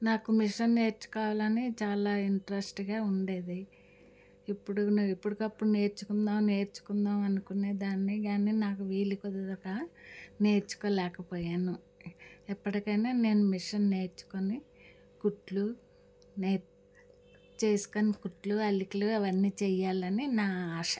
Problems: none marked